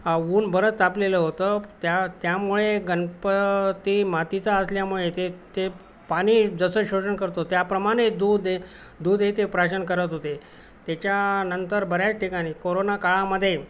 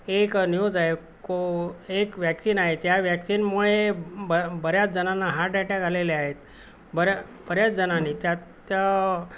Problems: constant background noise